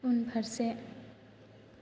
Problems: constant background noise